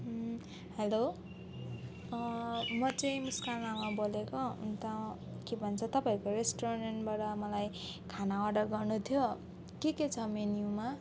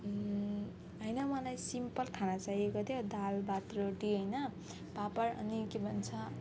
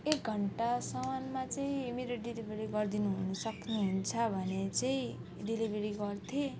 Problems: constant background noise, background conversations at intervals